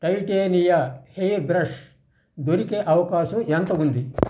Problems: none marked